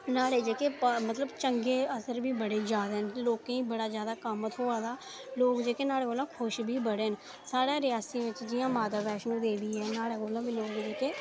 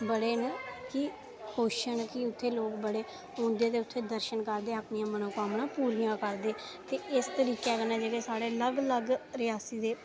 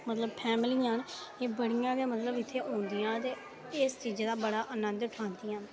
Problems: constant background noise